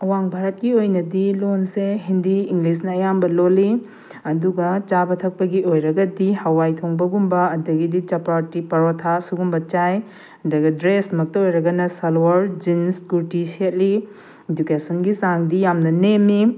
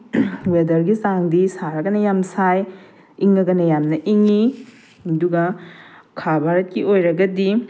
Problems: background sounds at intervals